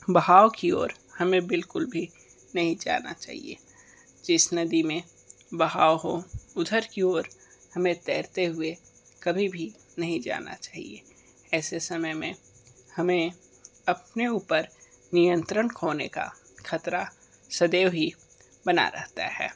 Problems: none marked